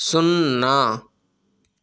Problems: none marked